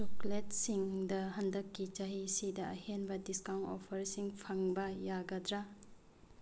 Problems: low volume